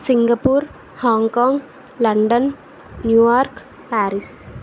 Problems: constant background noise